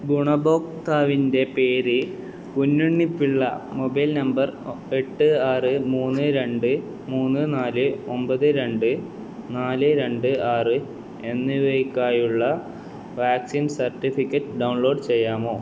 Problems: background sounds at intervals, low volume